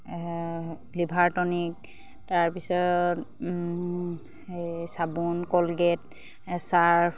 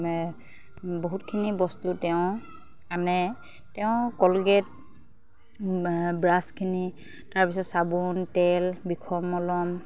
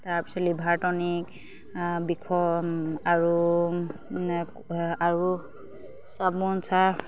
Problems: none marked